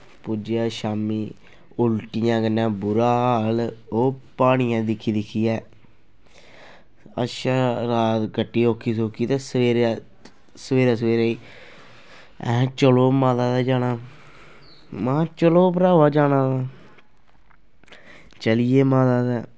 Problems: constant background noise